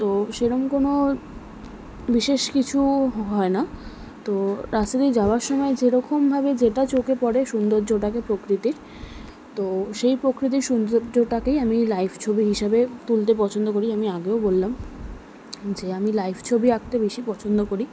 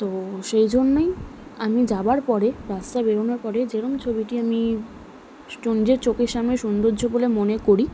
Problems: background conversations at intervals